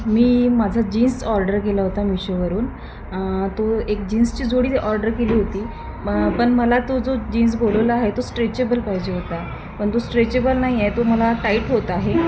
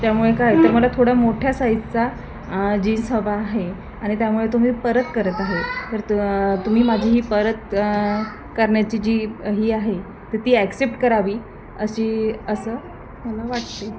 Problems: constant background noise, continuous background conversations